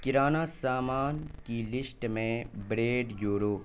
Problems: constant background noise